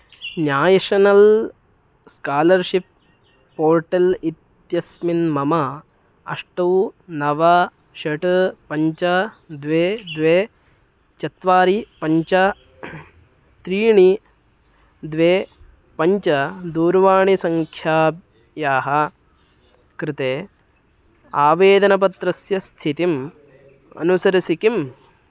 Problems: background sounds at intervals